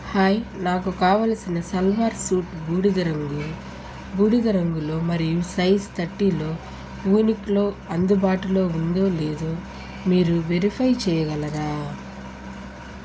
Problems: constant background noise